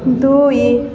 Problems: echo